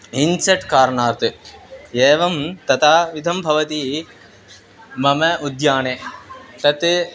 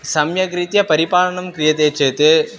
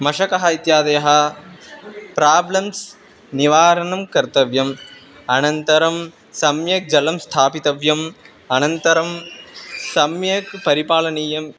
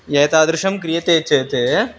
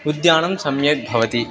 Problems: constant background noise, continuous background conversations